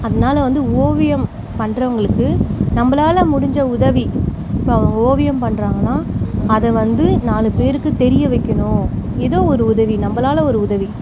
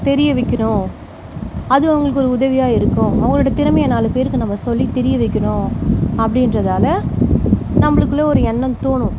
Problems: background sounds at intervals